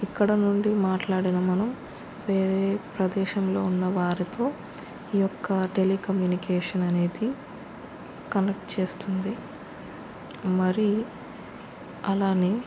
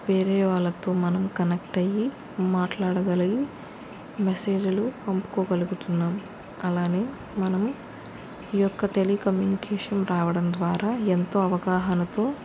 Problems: constant background noise